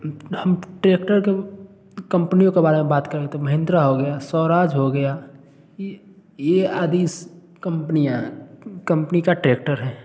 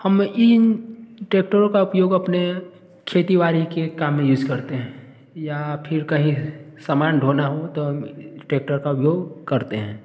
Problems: constant background noise